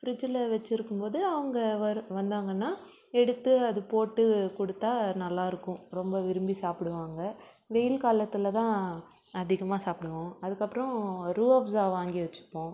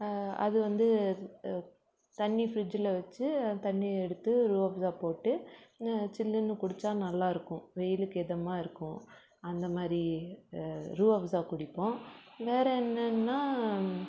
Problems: background sounds at intervals